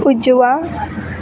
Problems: constant background noise